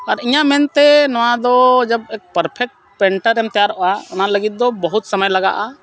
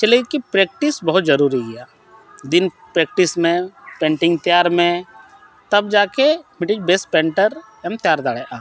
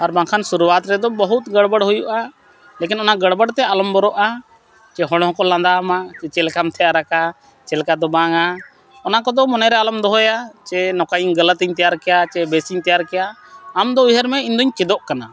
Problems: constant background noise